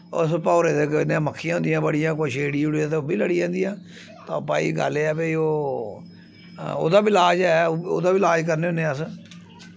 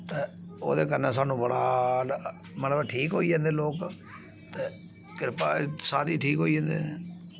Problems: constant background noise